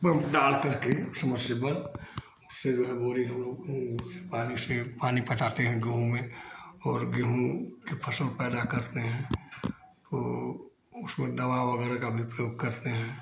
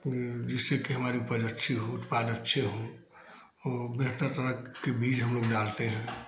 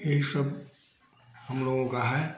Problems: constant background noise